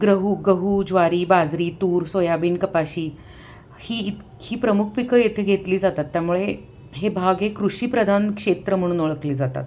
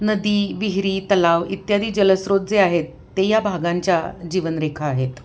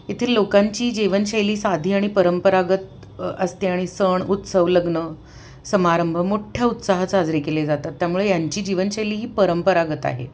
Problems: none marked